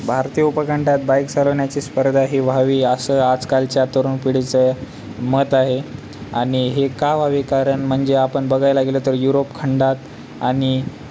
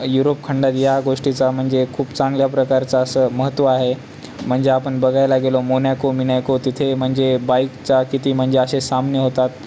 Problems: none marked